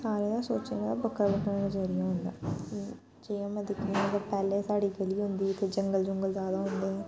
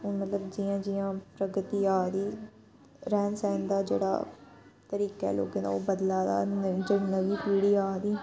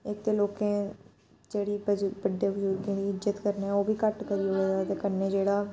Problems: background sounds at intervals